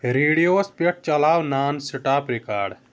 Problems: none marked